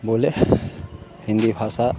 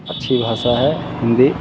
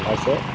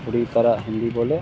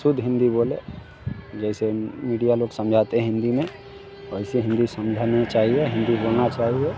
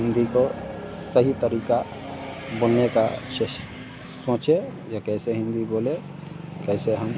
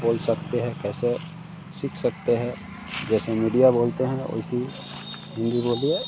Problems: none marked